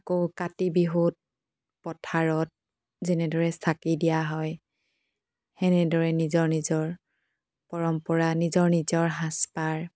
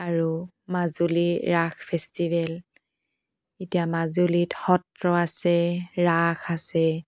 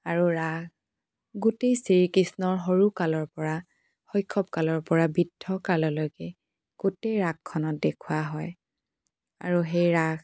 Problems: background sounds at intervals